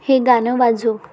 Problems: none marked